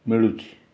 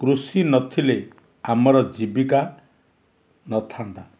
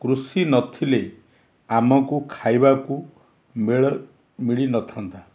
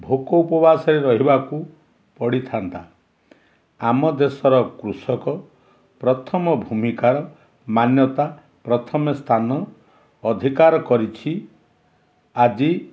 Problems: none marked